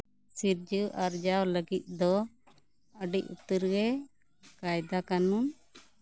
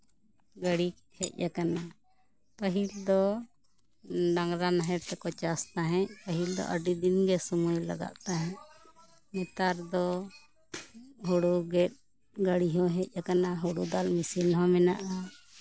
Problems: background conversations at intervals